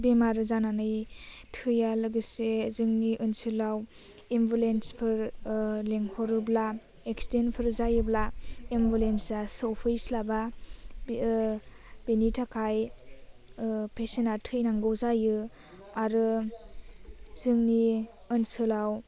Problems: low volume